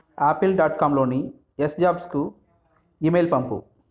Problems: none marked